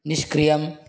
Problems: constant background noise